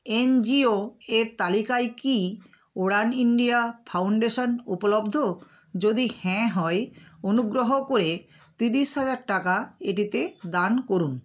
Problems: constant background noise